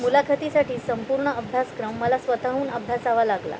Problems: none marked